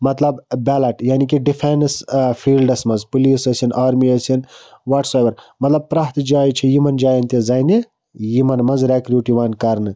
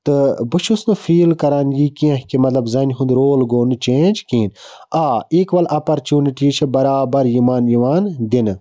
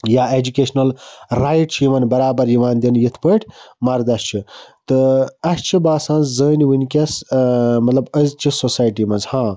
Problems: background sounds at intervals